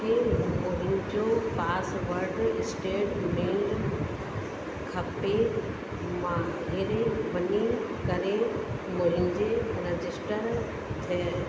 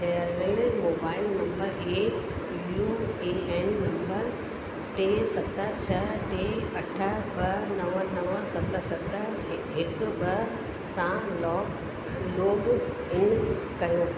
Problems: constant background noise, echo, low volume